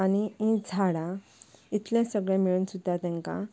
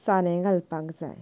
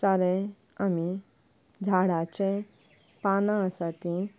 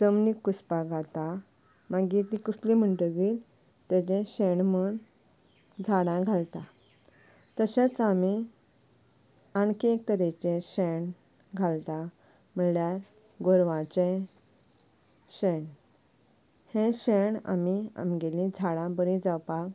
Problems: none marked